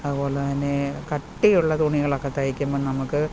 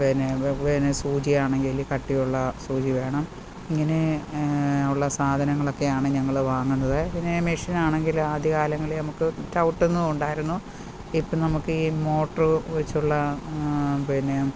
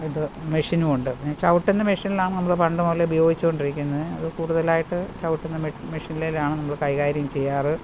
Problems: constant background noise